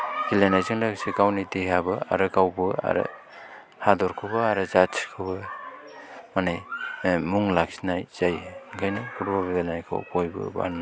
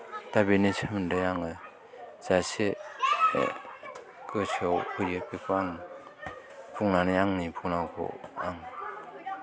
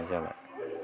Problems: background sounds at intervals, continuous background conversations